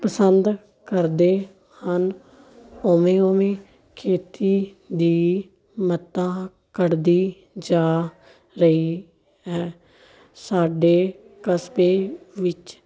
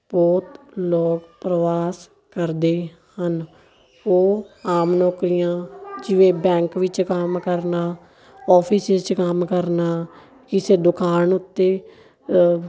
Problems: continuous background conversations